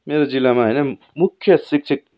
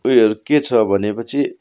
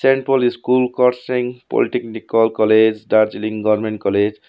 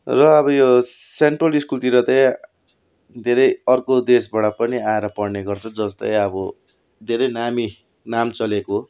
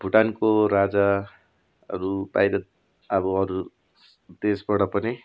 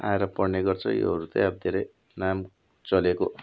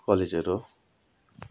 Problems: none marked